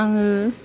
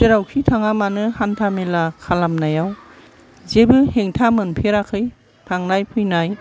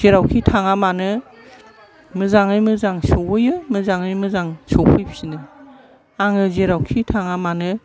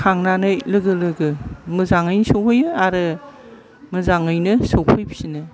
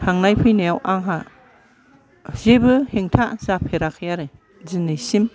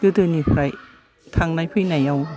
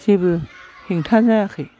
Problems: low volume